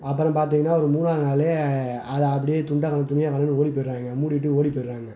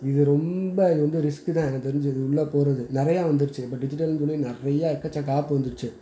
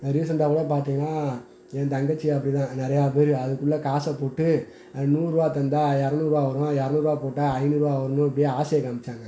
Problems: none marked